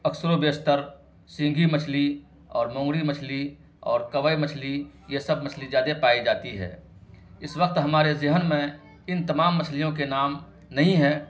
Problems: constant background noise